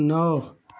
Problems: background sounds at intervals